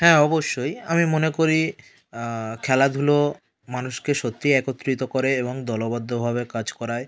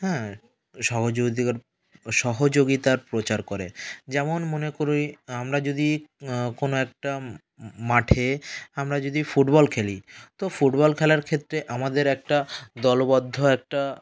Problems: none marked